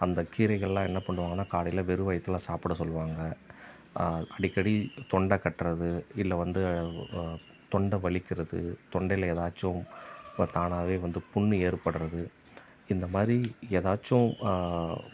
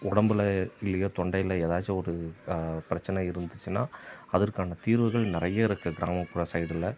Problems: background sounds at intervals